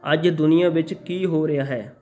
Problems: background conversations at intervals